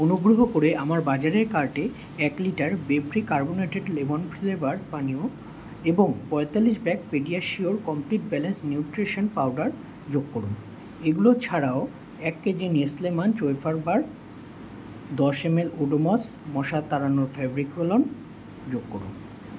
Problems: none marked